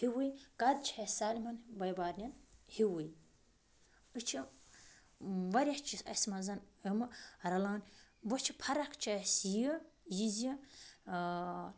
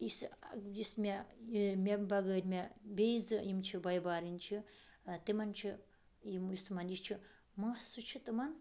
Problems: background sounds at intervals